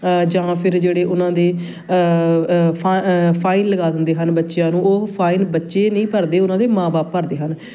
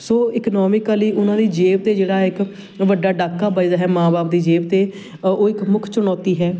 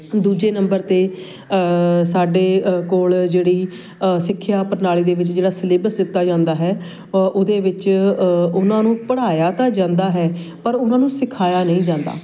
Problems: constant background noise, background conversations at intervals